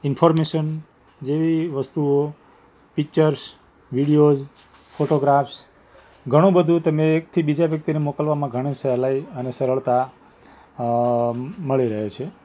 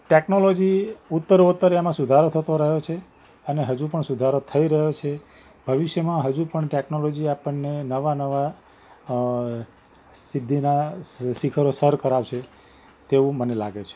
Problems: background sounds at intervals